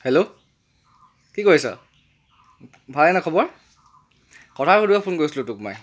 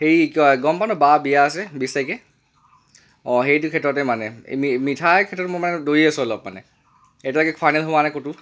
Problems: none marked